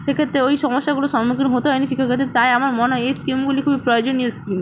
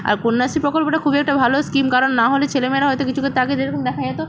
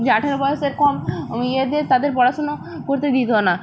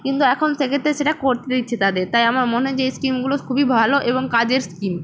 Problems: none marked